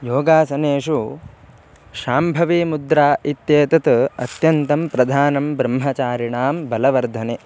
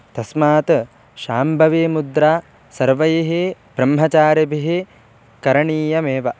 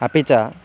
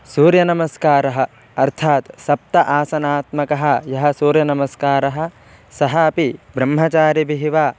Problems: background sounds at intervals